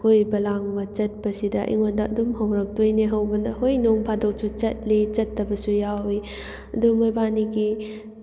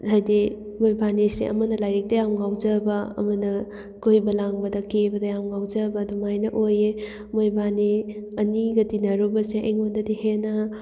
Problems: none marked